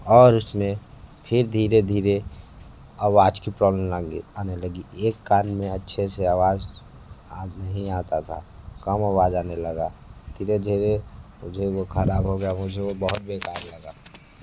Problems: background sounds at intervals, low volume